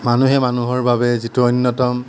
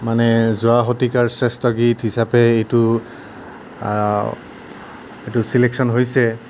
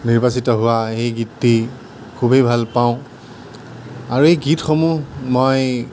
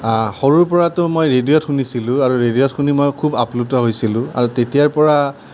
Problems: none marked